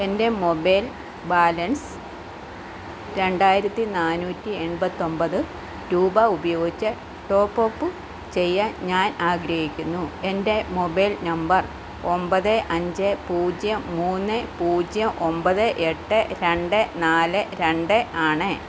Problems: constant background noise